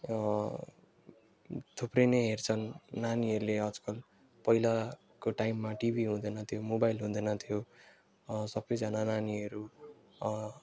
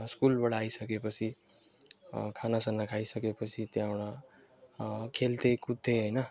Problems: background sounds at intervals